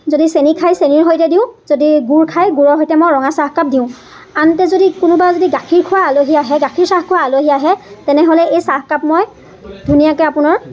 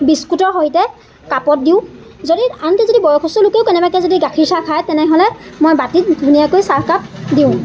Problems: constant background noise, continuous background conversations